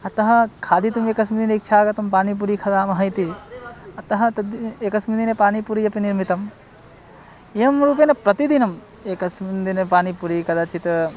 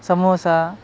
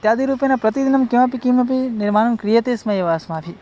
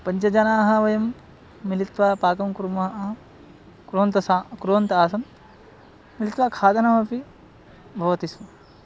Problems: none marked